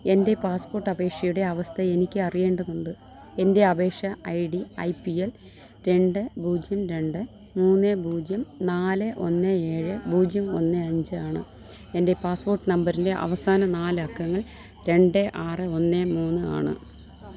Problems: low volume